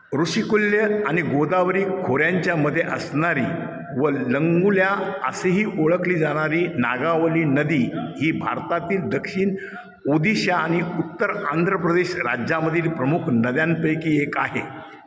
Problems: echo